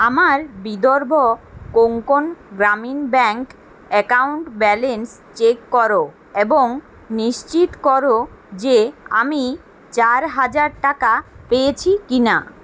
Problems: constant background noise